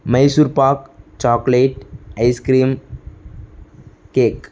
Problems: none marked